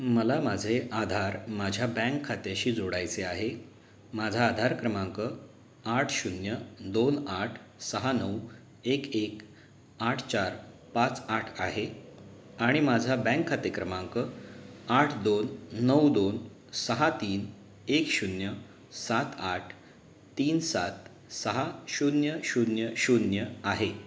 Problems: none marked